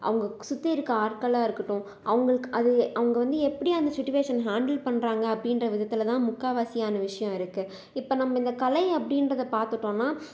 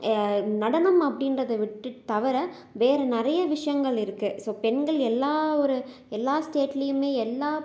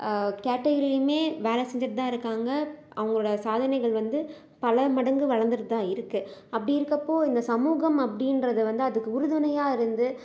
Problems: none marked